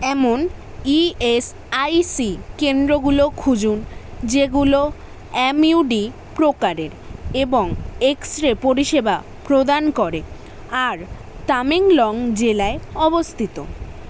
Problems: constant background noise